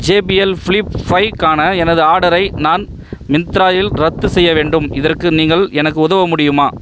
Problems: background sounds at intervals